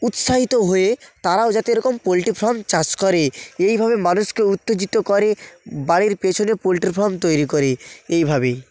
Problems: background sounds at intervals